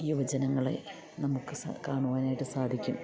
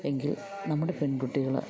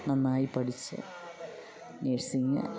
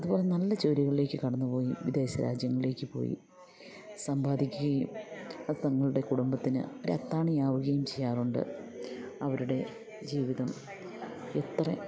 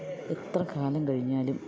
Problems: continuous background conversations